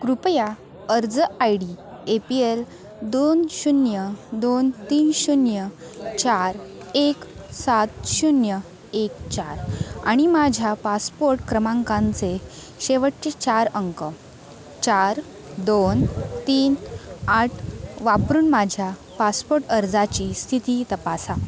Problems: continuous background conversations